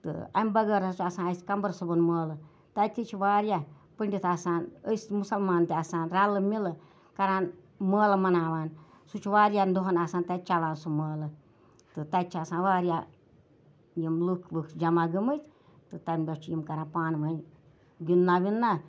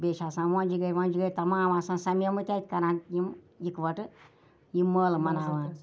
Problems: none marked